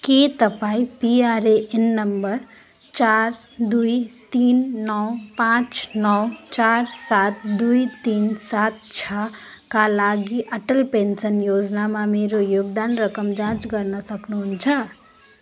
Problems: constant background noise